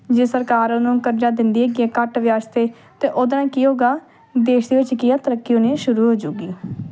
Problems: none marked